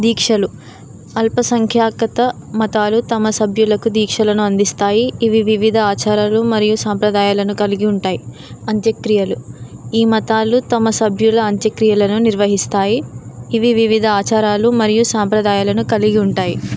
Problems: background sounds at intervals